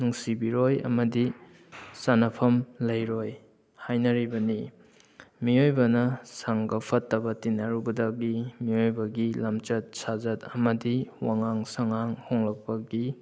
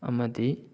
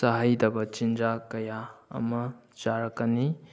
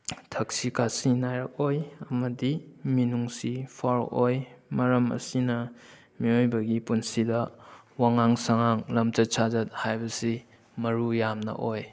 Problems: background sounds at intervals